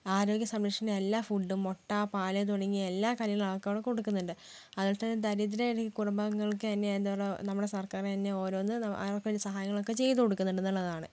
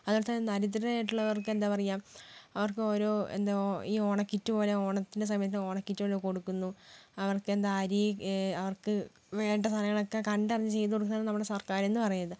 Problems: low volume